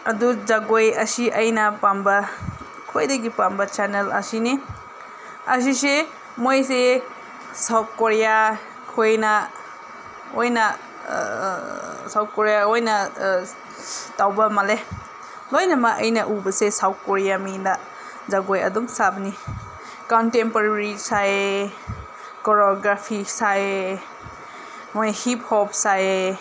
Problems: none marked